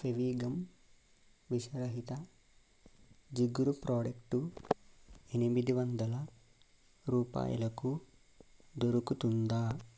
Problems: constant background noise